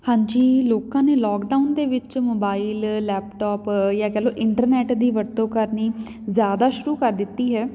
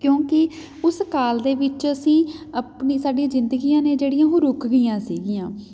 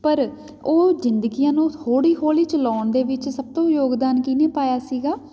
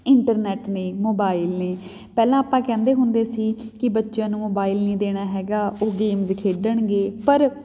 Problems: background sounds at intervals